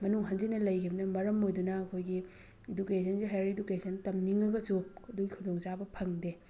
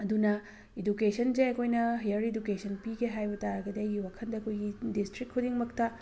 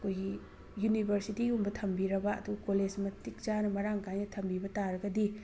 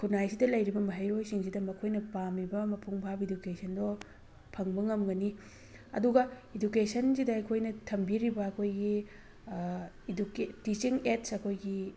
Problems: background sounds at intervals